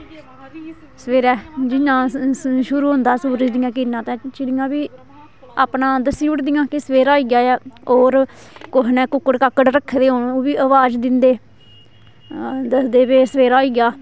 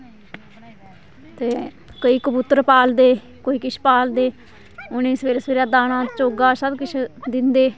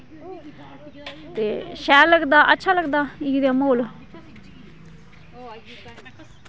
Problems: constant background noise